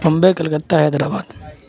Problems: constant background noise